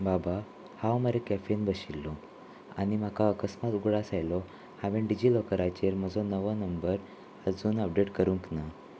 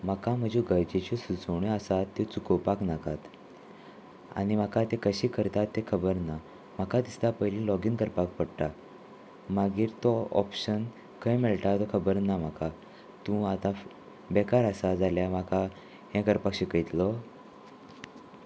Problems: constant background noise